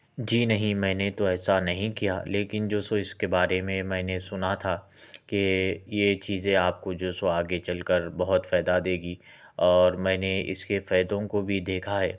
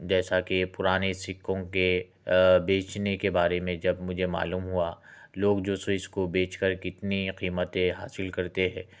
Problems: background sounds at intervals